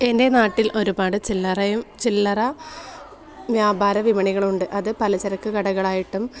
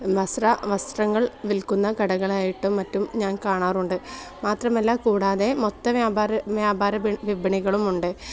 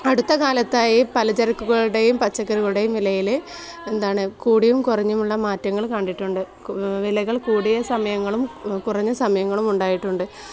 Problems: background conversations at intervals